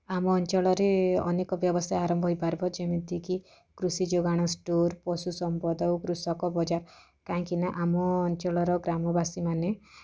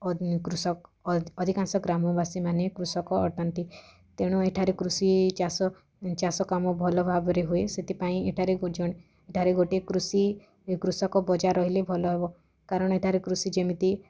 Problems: none marked